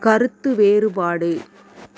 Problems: none marked